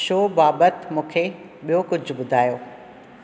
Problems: none marked